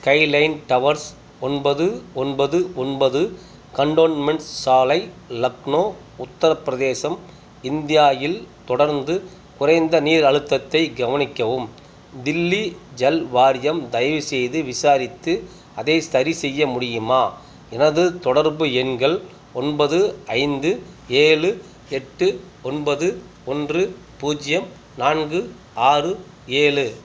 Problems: none marked